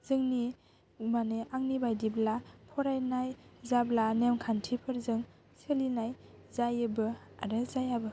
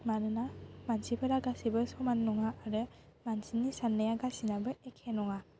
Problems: constant background noise